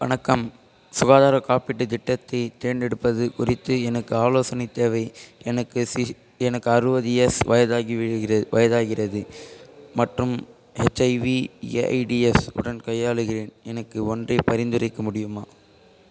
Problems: background sounds at intervals, continuous background conversations